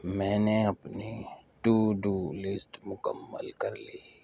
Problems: none marked